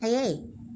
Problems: low volume